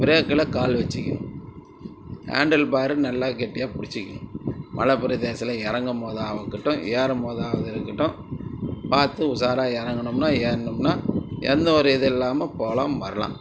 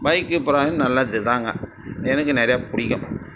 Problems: constant background noise, background conversations at intervals